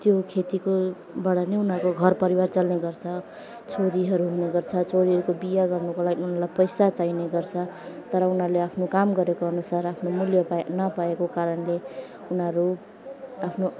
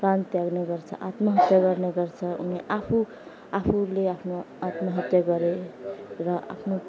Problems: constant background noise, background conversations at intervals